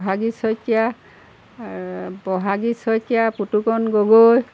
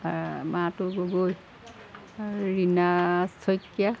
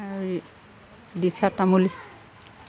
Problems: none marked